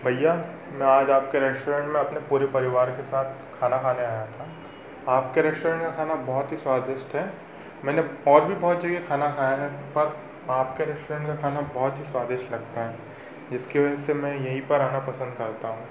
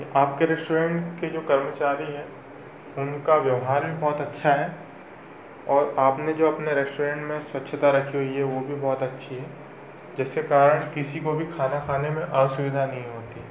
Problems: constant background noise